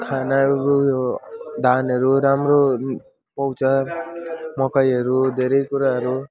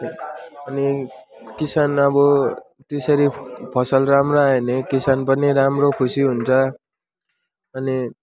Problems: continuous background conversations